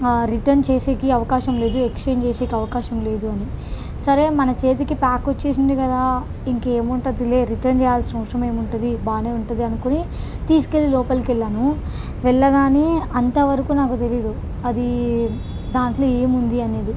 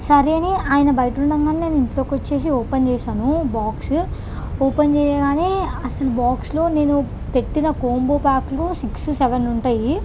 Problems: none marked